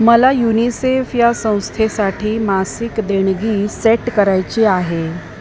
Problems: constant background noise